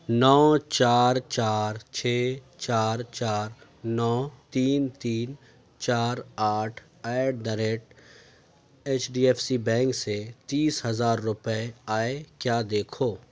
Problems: none marked